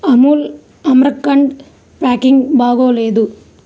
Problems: background sounds at intervals